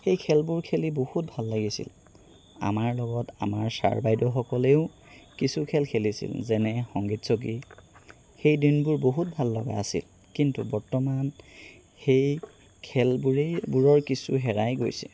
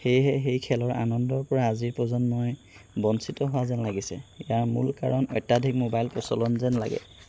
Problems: background sounds at intervals